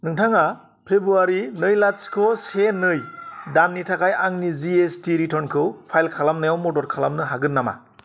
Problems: none marked